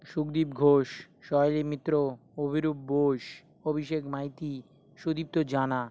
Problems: none marked